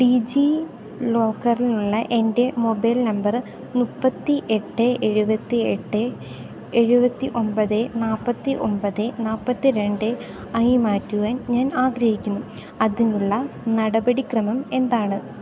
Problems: none marked